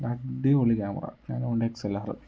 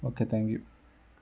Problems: none marked